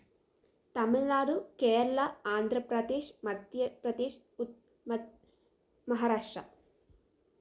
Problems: none marked